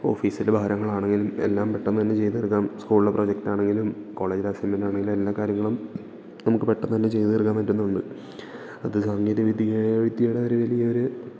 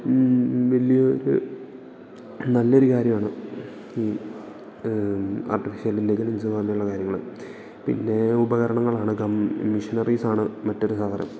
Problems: low volume